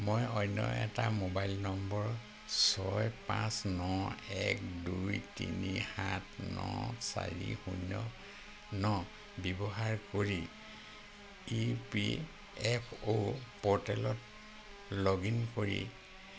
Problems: constant background noise